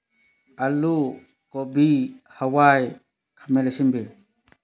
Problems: none marked